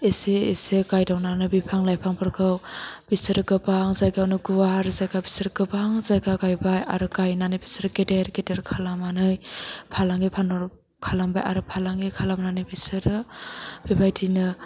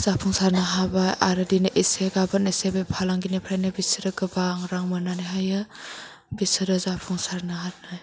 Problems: background sounds at intervals